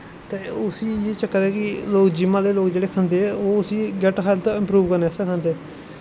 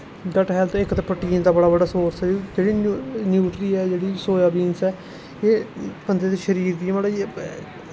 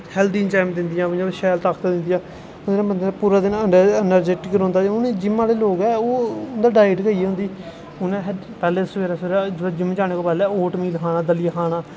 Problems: constant background noise